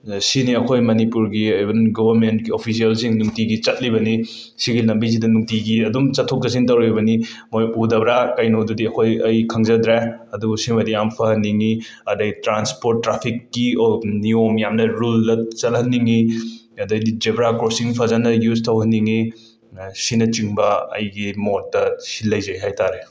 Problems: background sounds at intervals